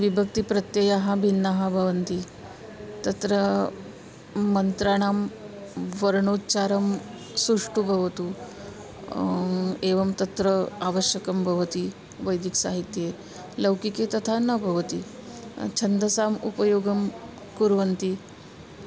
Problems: constant background noise, continuous background conversations